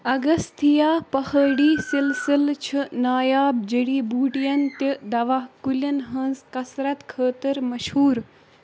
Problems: constant background noise